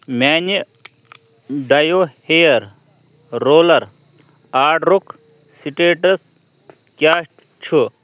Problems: none marked